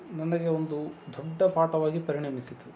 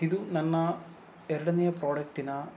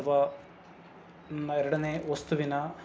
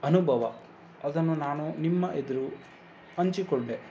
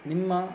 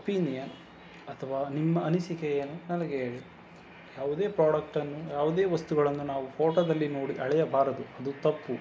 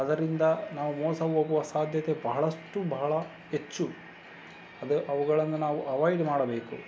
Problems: constant background noise